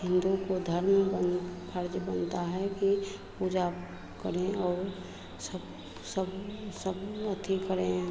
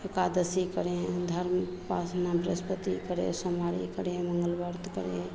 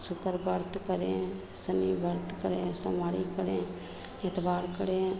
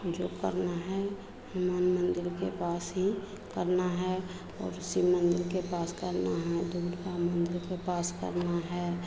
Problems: constant background noise, continuous background conversations